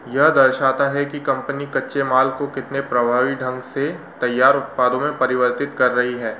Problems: constant background noise